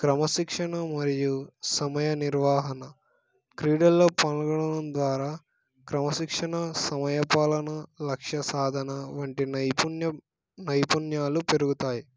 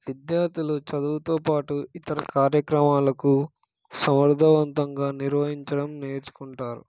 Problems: background sounds at intervals